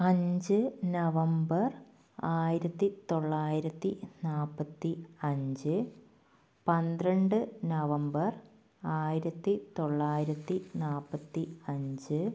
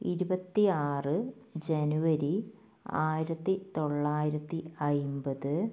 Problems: low volume